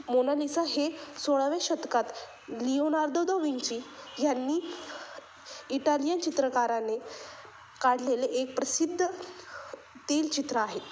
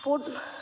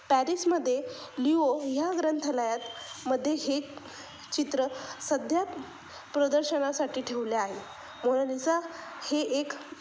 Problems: constant background noise